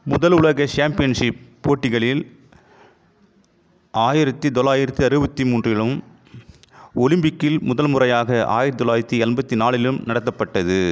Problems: constant background noise